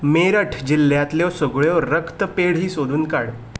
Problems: background sounds at intervals